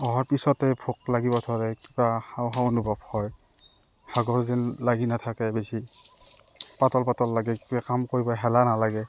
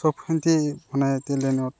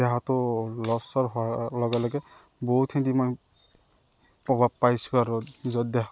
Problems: none marked